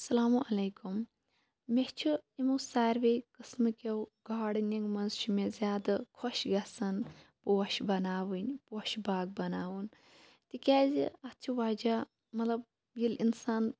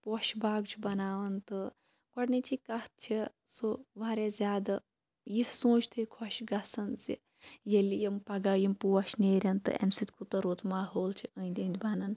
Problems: constant background noise